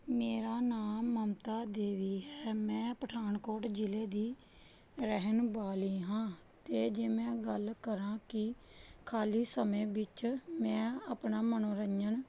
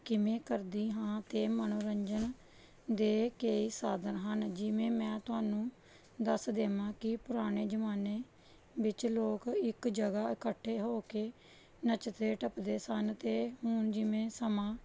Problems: none marked